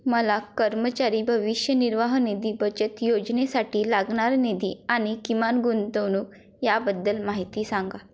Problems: none marked